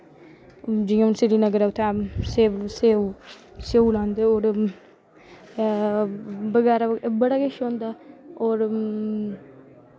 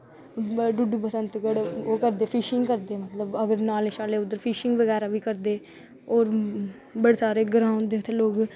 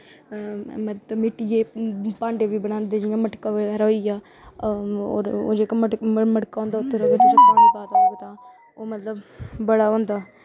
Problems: background sounds at intervals